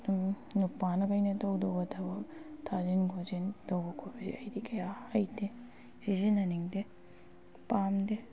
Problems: background sounds at intervals